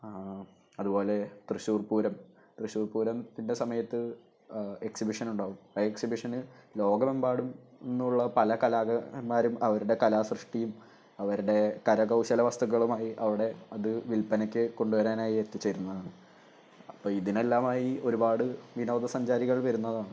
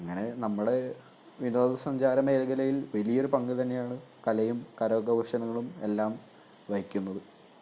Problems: none marked